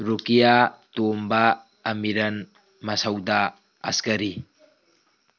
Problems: background sounds at intervals